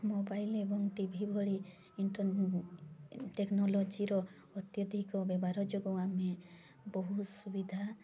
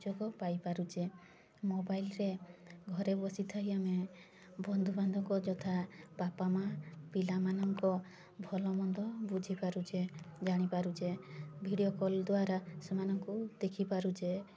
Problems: constant background noise, continuous background conversations